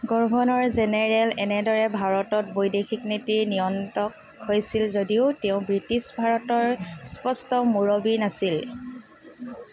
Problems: background sounds at intervals